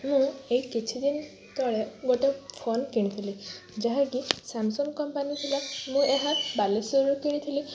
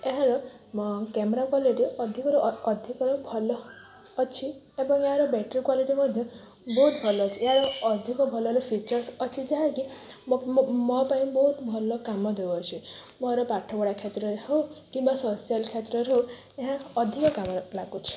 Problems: constant background noise